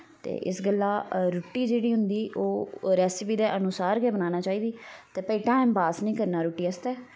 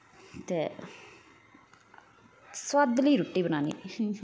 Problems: constant background noise